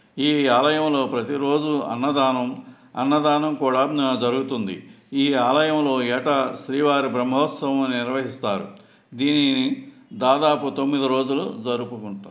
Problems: background sounds at intervals